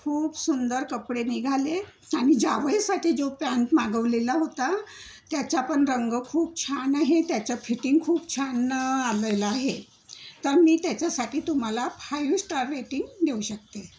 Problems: none marked